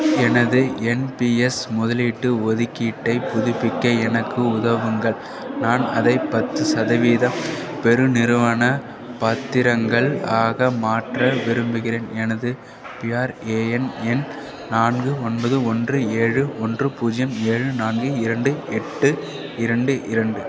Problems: constant background noise